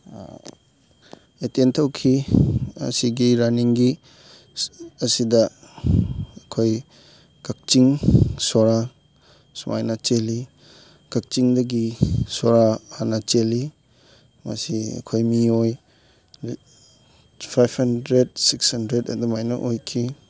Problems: background sounds at intervals, background conversations at intervals